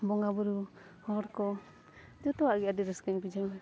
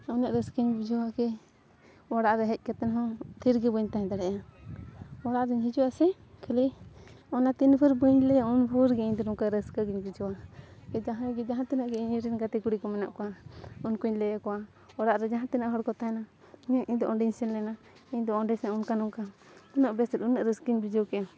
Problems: none marked